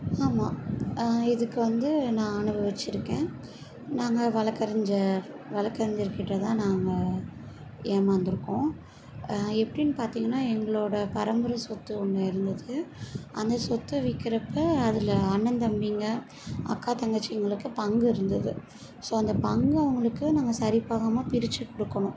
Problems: background sounds at intervals